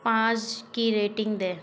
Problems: constant background noise